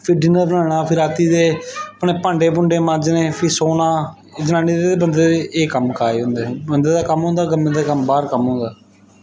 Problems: background sounds at intervals